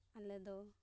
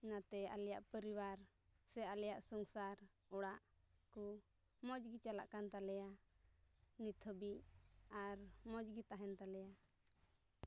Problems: low volume